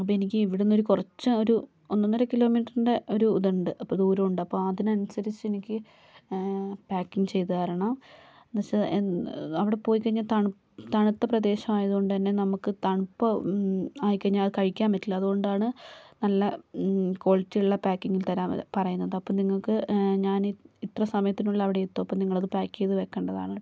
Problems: none marked